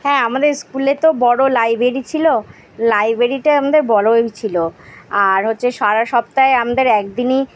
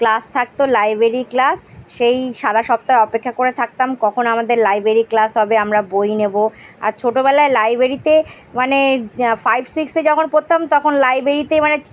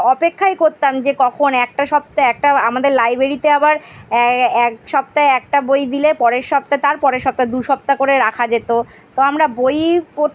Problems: background sounds at intervals